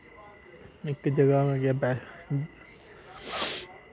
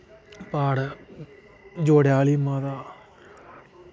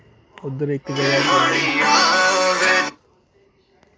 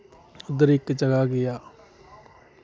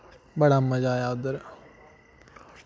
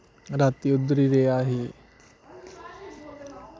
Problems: constant background noise